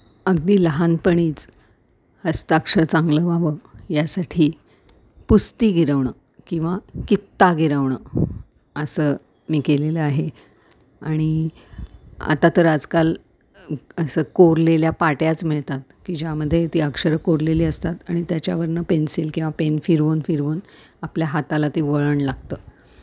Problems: background sounds at intervals